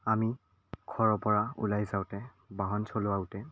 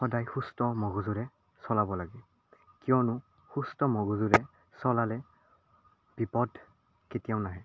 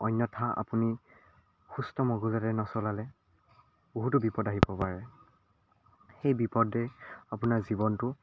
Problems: none marked